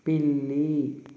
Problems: constant background noise